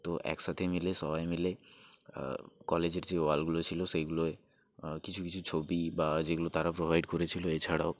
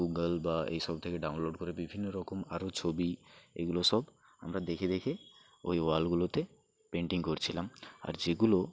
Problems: none marked